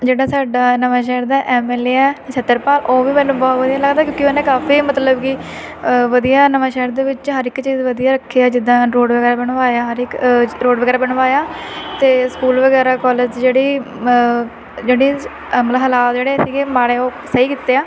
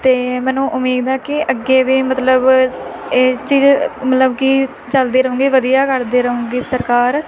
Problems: constant background noise